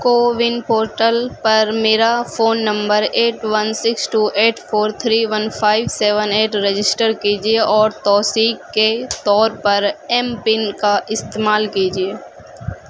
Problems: constant background noise